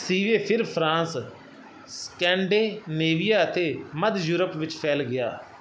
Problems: none marked